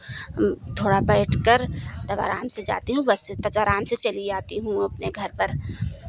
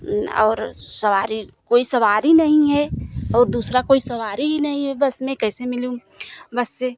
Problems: none marked